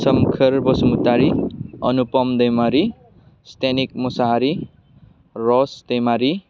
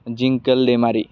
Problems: none marked